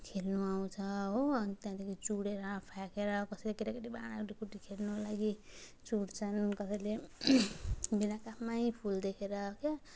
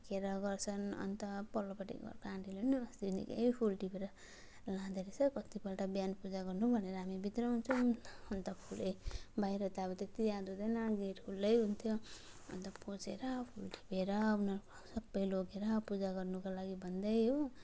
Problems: none marked